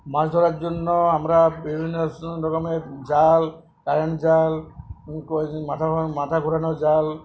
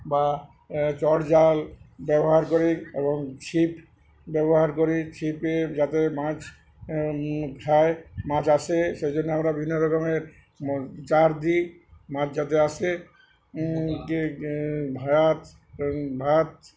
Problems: background conversations at intervals